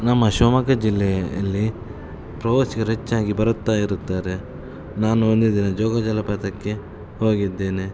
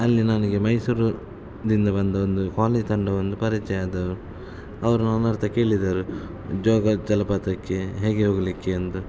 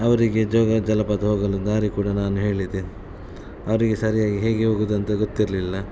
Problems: none marked